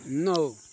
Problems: constant background noise